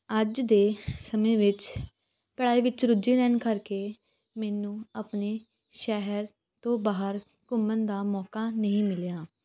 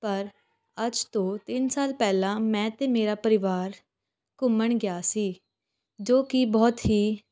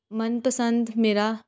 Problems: none marked